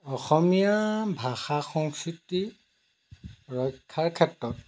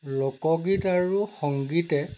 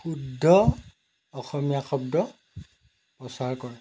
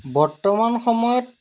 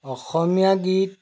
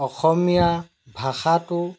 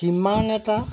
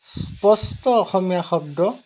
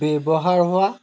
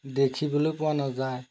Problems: none marked